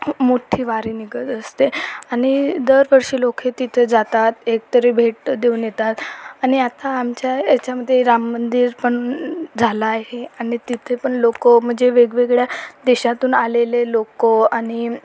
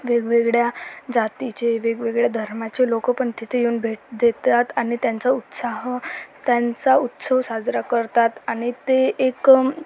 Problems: constant background noise, continuous background conversations